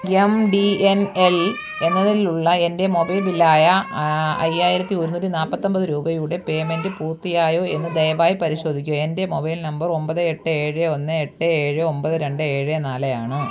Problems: constant background noise, low volume